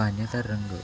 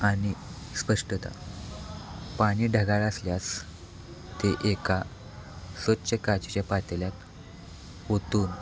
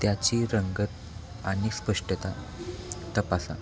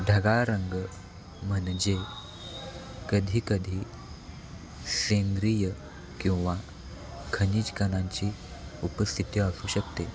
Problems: constant background noise, background conversations at intervals